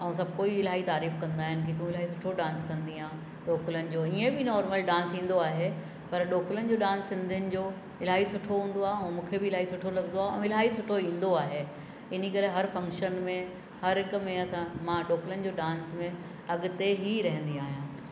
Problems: constant background noise, echo